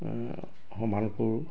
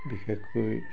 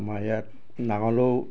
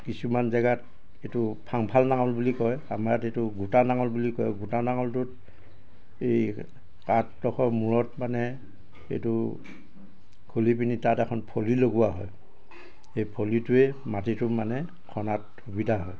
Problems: constant background noise, background conversations at intervals